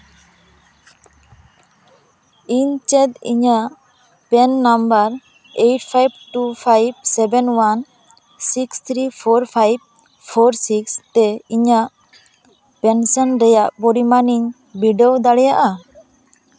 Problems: background sounds at intervals, background conversations at intervals